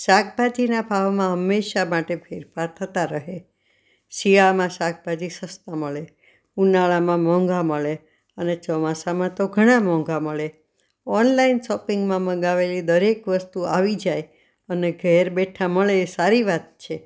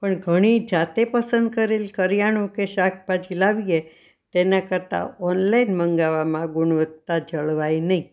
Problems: none marked